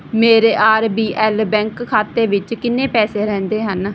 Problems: background conversations at intervals